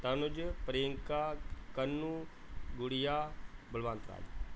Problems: none marked